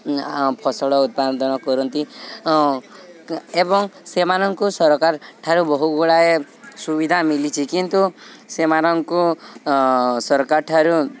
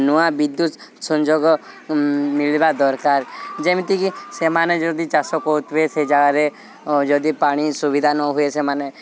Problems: none marked